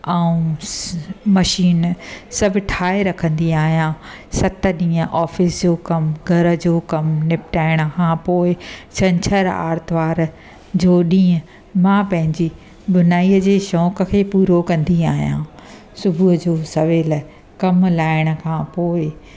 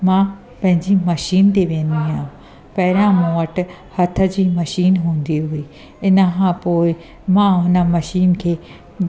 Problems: constant background noise